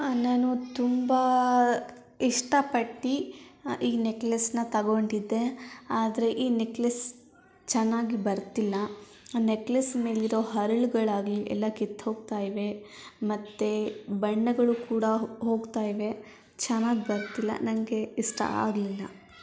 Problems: continuous background conversations